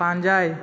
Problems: background sounds at intervals